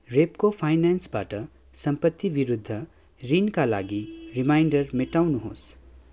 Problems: background sounds at intervals